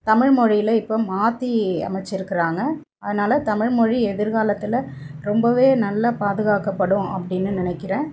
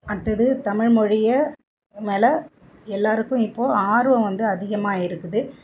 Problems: background sounds at intervals